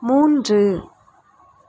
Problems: none marked